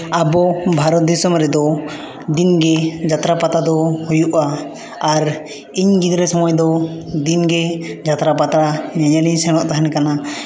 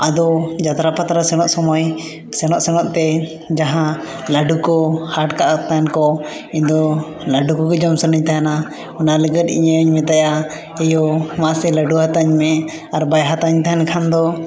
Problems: background sounds at intervals, echo